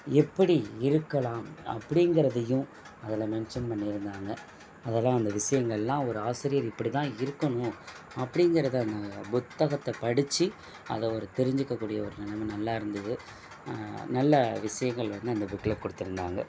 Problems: background sounds at intervals